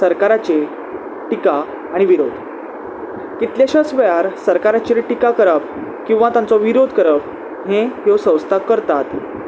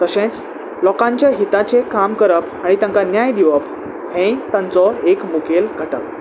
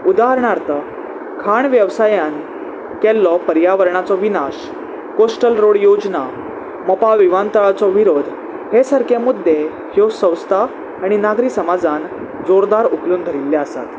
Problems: constant background noise